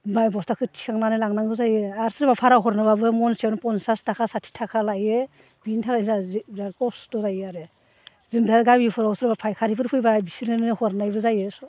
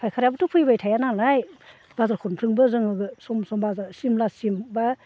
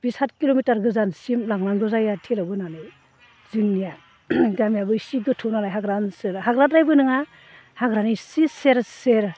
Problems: low volume